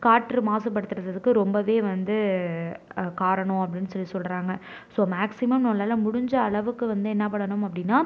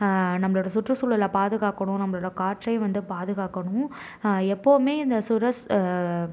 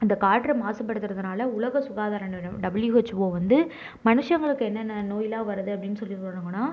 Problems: none marked